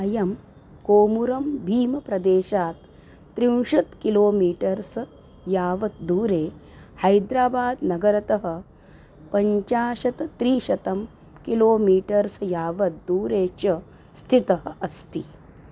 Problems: none marked